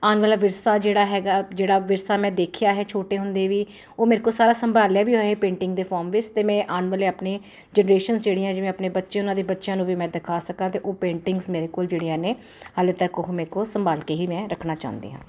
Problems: constant background noise